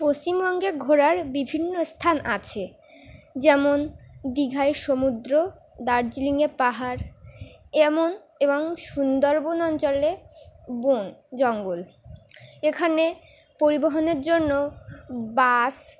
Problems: background sounds at intervals